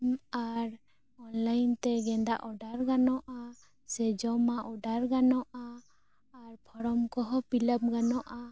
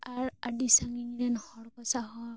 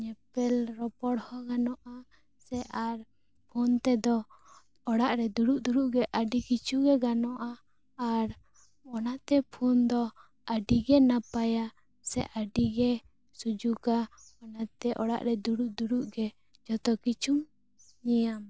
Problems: none marked